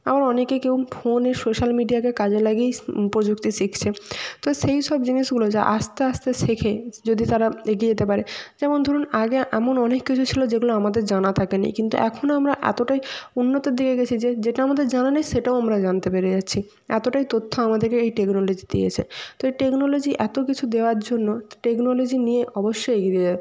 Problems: constant background noise